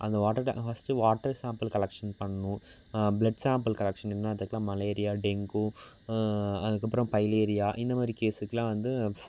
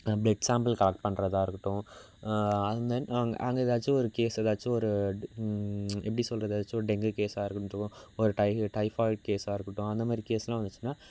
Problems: none marked